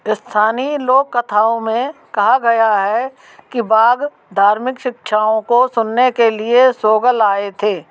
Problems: background sounds at intervals